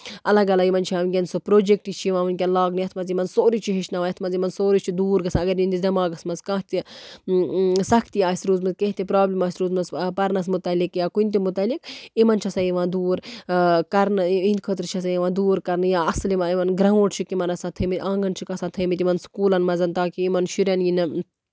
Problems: none marked